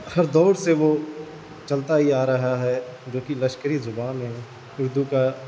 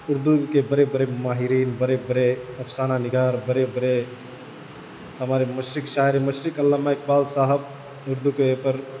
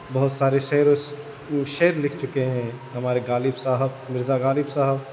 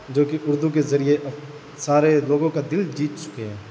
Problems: constant background noise